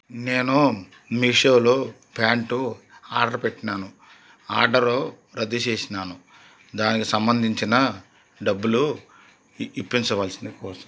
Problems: none marked